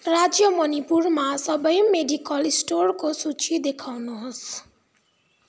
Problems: none marked